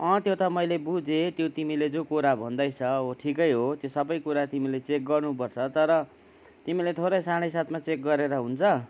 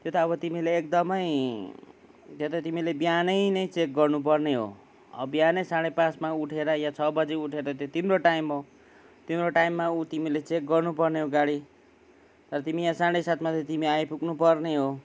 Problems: none marked